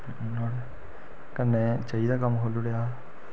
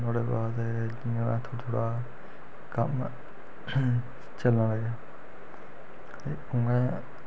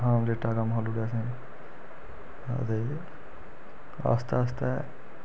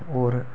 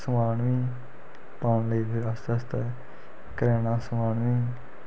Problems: constant background noise